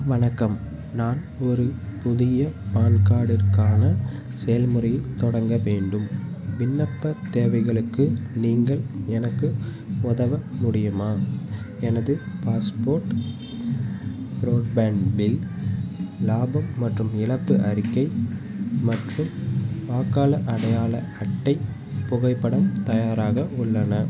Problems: constant background noise